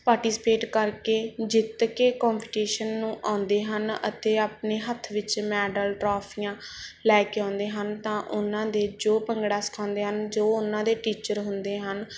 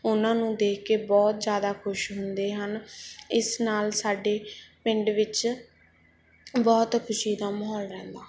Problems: background sounds at intervals